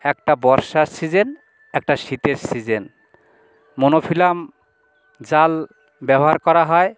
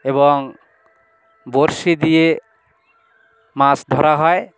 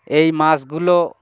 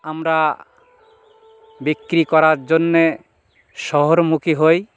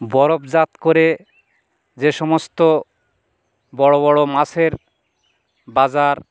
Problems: background sounds at intervals, continuous background conversations